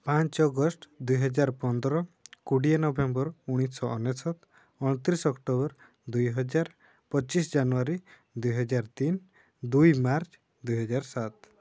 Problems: low volume